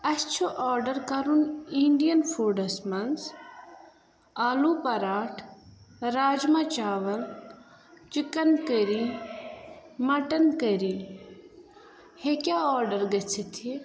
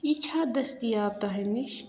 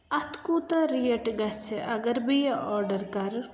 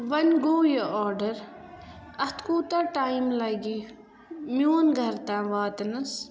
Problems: constant background noise